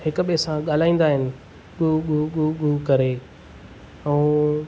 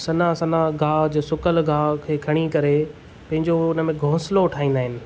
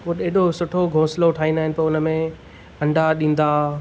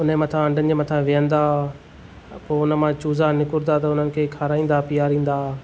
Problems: none marked